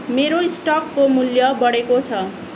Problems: constant background noise